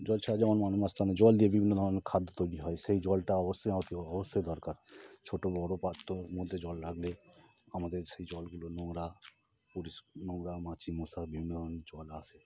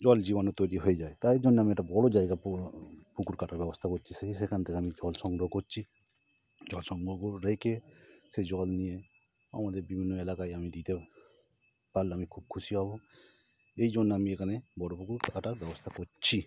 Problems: none marked